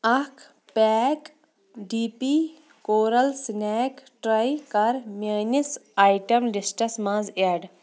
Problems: none marked